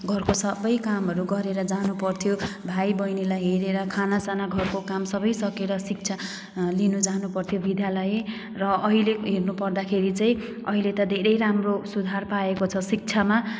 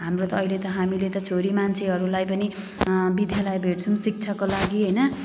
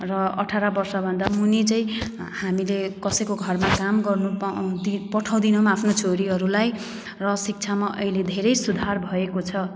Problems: background sounds at intervals